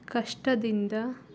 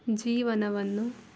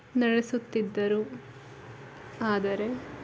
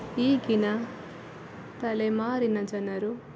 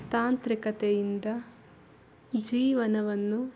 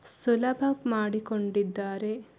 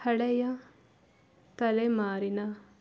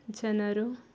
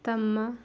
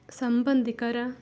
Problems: background sounds at intervals